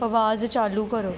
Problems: none marked